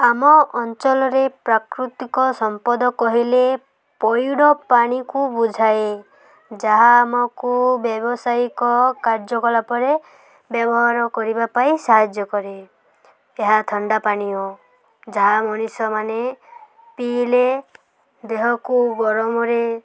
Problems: constant background noise